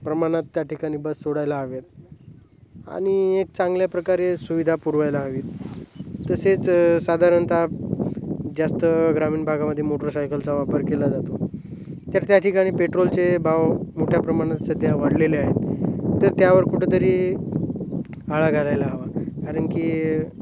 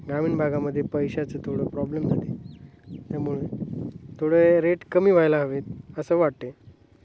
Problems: none marked